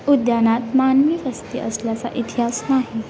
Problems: constant background noise, continuous background conversations